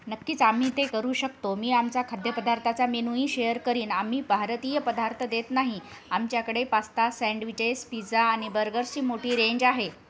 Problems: background sounds at intervals